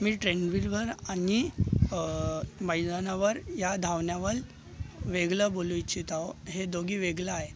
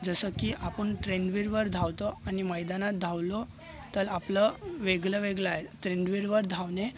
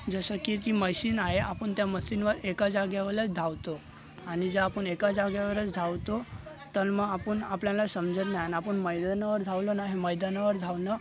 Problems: constant background noise, continuous background conversations